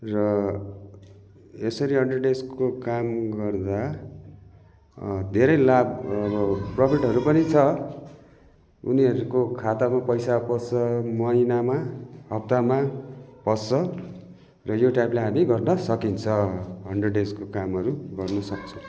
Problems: continuous background conversations